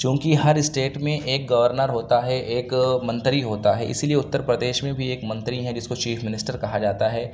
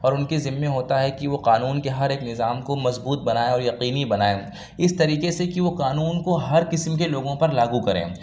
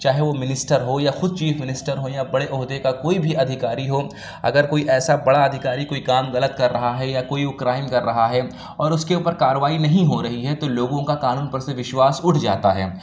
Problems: none marked